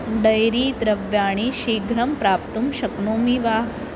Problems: constant background noise